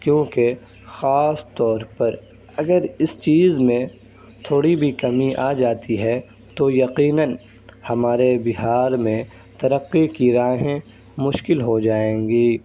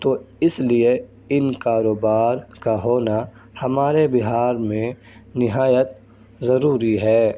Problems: constant background noise